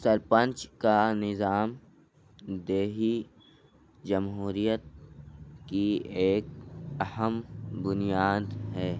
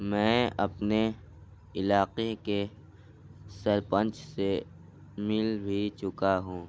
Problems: low volume